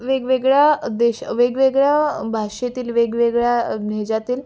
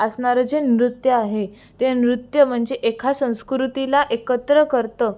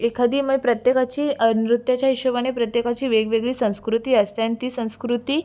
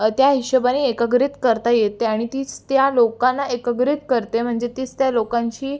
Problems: constant background noise